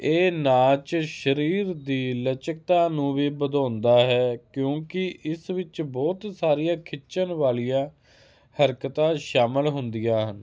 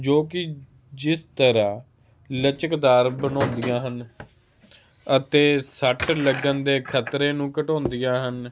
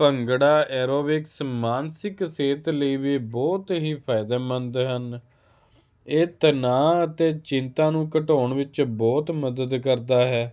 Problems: constant background noise